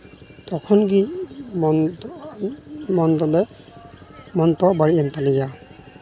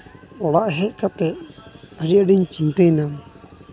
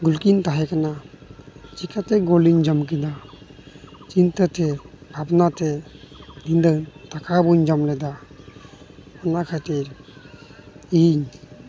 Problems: none marked